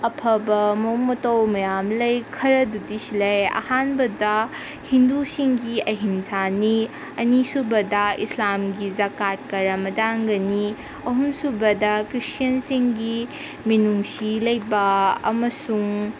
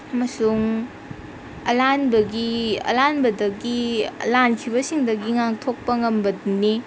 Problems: constant background noise